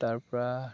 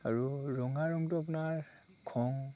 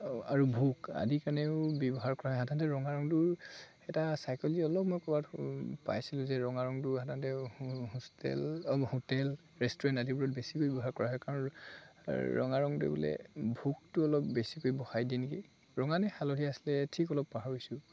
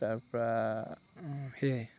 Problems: constant background noise, background conversations at intervals